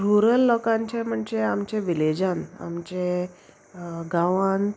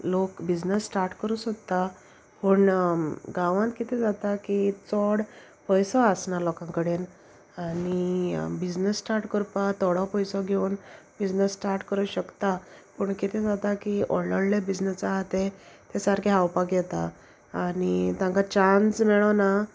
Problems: constant background noise